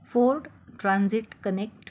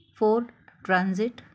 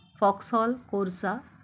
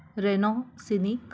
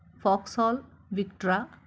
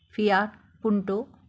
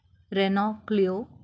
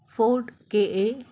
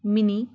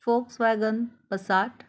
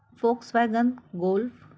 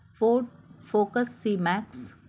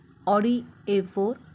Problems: constant background noise